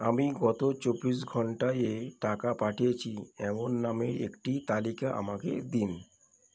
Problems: none marked